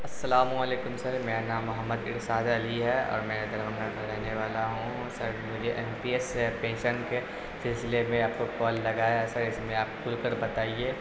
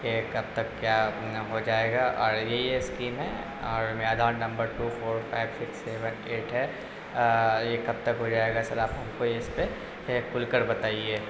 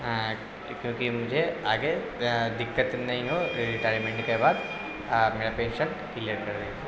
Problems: constant background noise, low volume